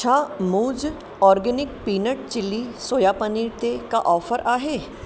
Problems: constant background noise, echo